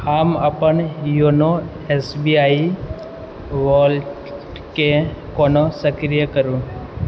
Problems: background sounds at intervals